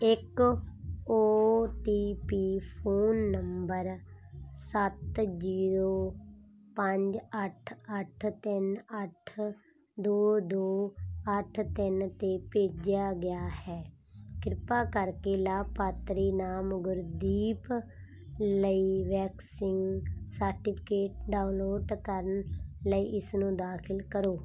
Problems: constant background noise